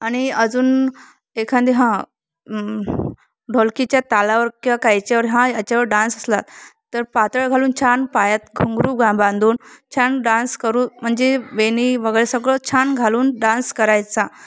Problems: constant background noise